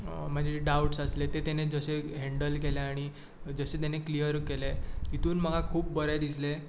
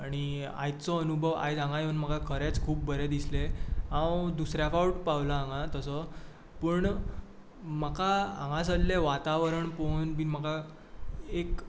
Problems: none marked